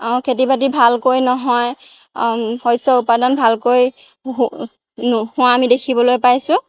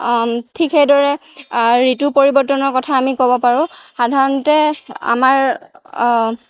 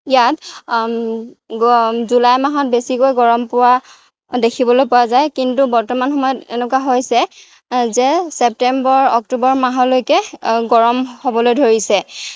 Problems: background sounds at intervals